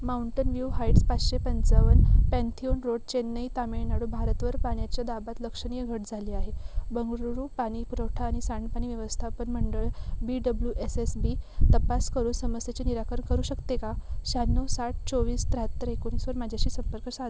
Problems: background sounds at intervals